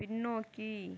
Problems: low volume